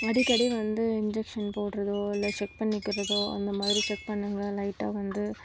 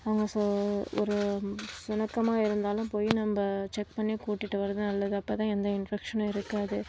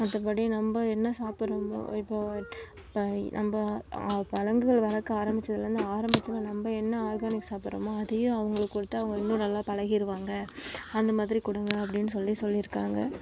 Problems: background sounds at intervals, low volume